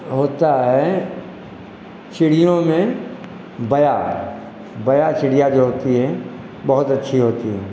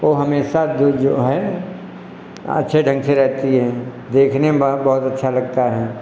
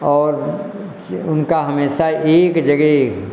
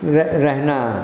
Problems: echo